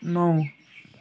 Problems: constant background noise